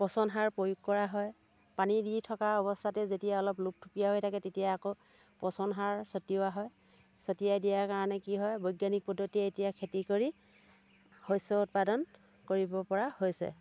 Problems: none marked